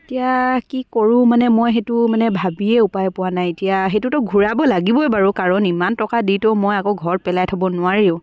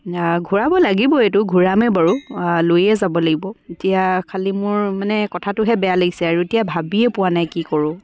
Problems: background sounds at intervals, background conversations at intervals